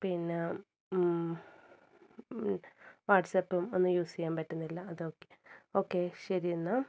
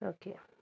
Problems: low volume